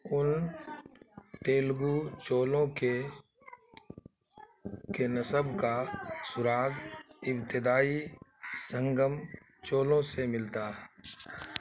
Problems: constant background noise